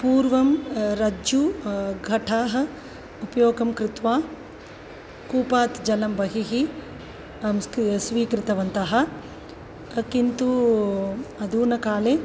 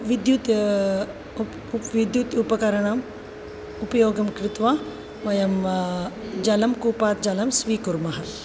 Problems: none marked